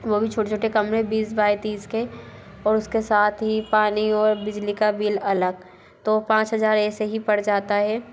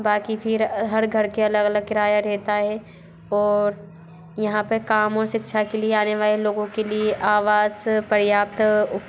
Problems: constant background noise, background conversations at intervals